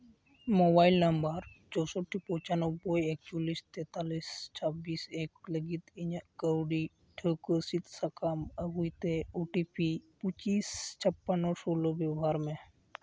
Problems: background conversations at intervals